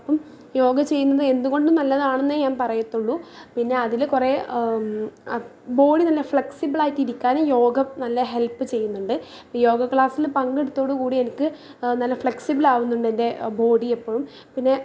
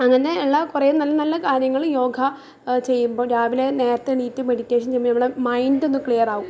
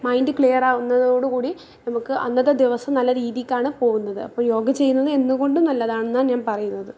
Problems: low volume